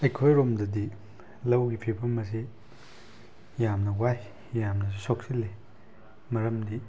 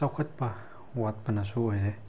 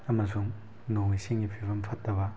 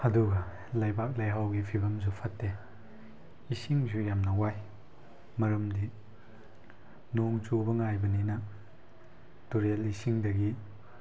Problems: background sounds at intervals